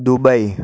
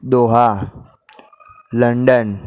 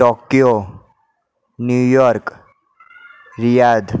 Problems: none marked